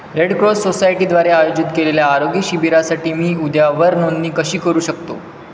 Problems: constant background noise